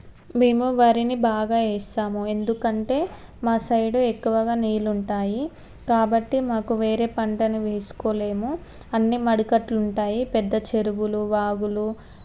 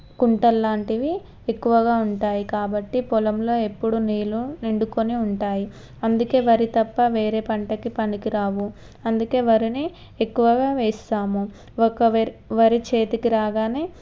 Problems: none marked